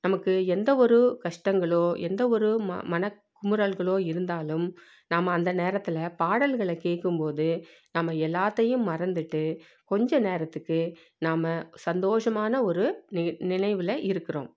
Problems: none marked